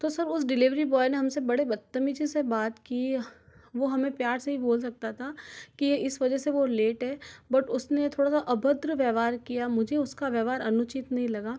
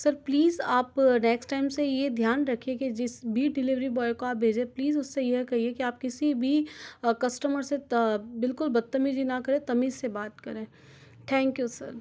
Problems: none marked